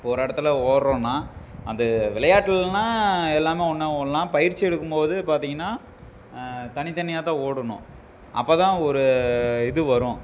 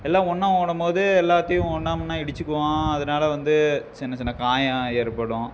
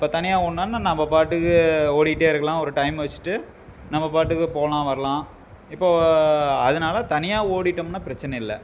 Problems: background sounds at intervals